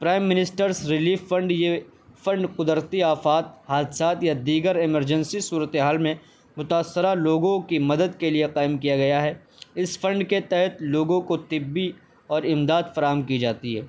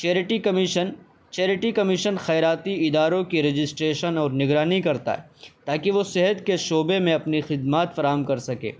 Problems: constant background noise